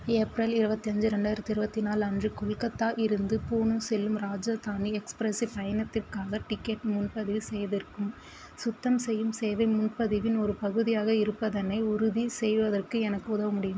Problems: constant background noise